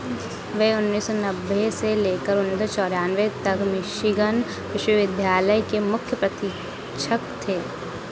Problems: constant background noise